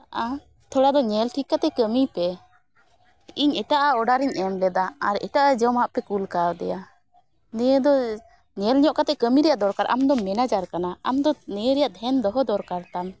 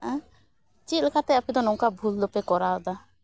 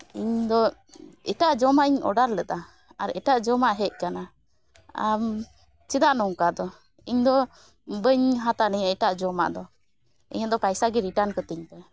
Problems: background sounds at intervals